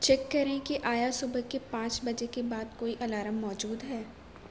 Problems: constant background noise